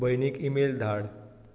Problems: echo